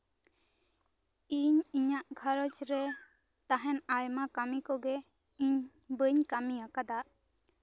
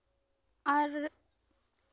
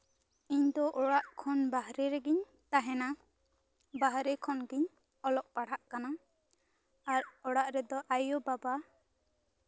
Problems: background conversations at intervals